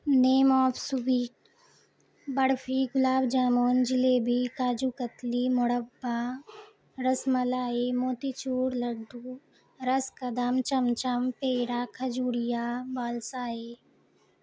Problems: constant background noise